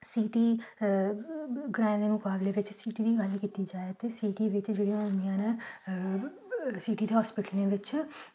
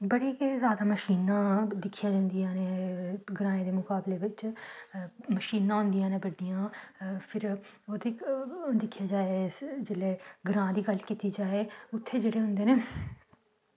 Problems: background sounds at intervals, low volume